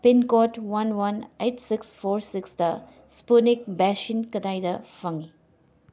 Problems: none marked